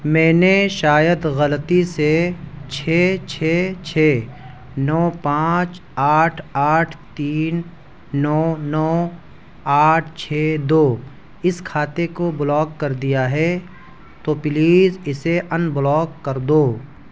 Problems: background sounds at intervals